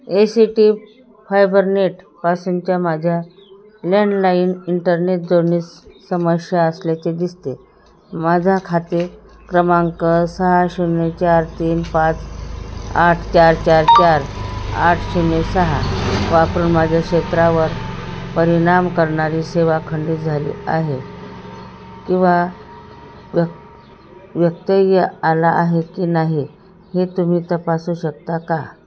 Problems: background sounds at intervals